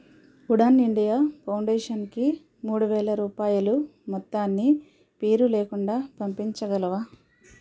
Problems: background sounds at intervals